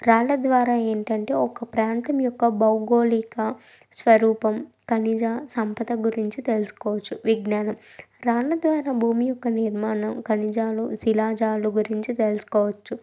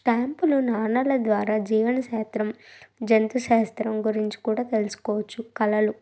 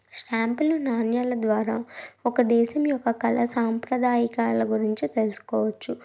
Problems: background sounds at intervals